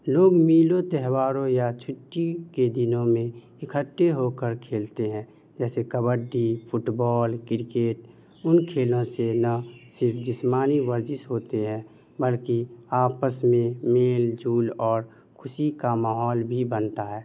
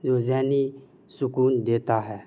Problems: none marked